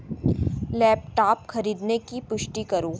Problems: background sounds at intervals